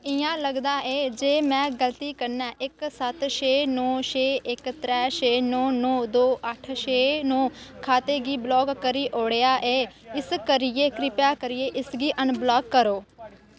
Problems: constant background noise